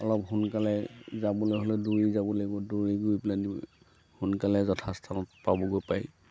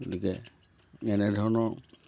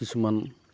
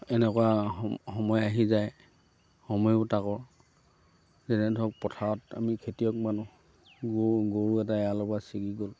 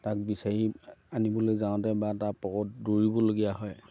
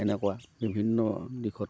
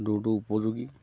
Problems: none marked